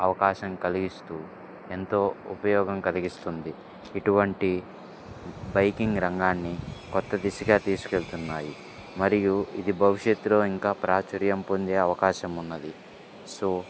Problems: background sounds at intervals